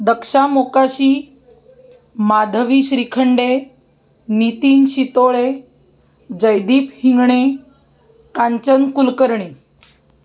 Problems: background sounds at intervals, background conversations at intervals